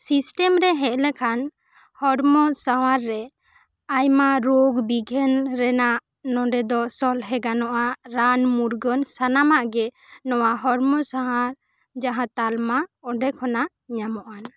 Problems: none marked